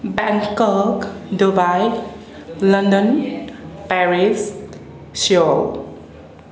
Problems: constant background noise, background conversations at intervals